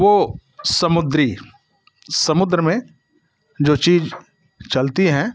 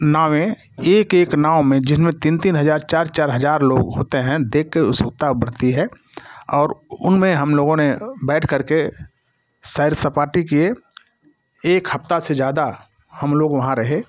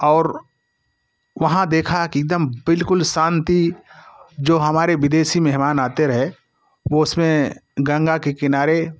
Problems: constant background noise